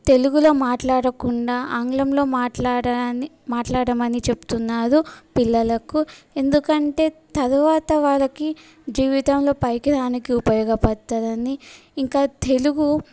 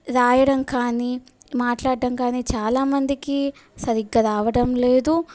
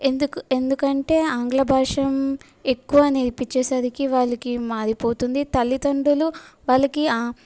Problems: background sounds at intervals